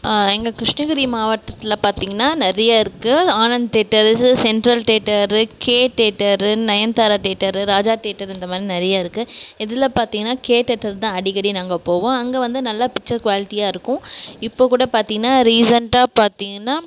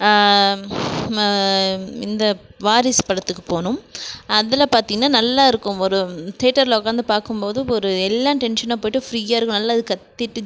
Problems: none marked